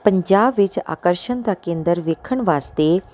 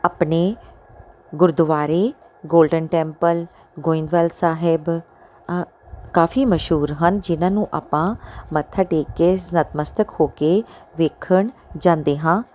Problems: background sounds at intervals